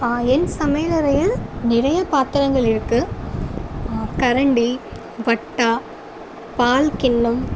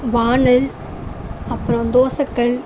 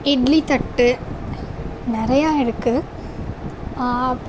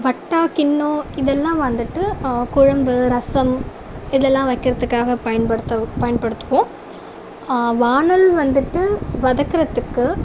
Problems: none marked